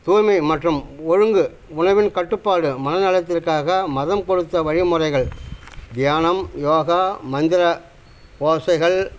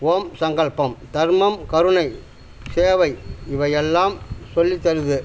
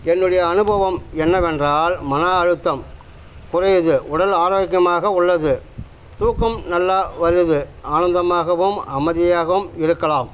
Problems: constant background noise